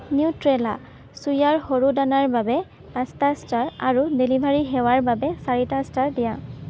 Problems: constant background noise